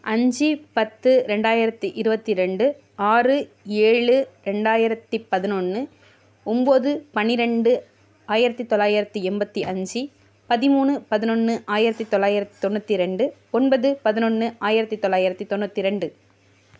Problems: none marked